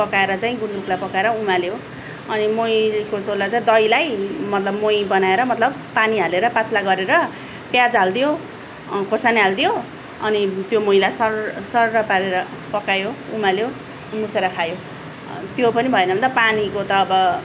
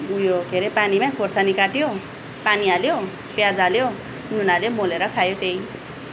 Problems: none marked